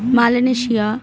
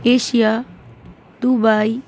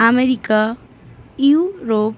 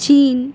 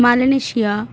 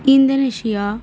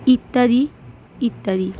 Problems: constant background noise